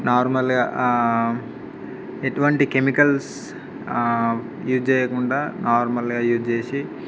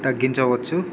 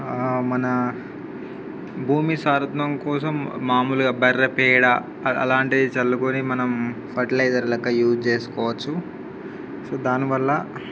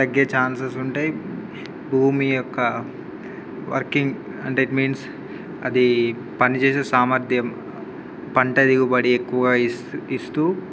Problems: background sounds at intervals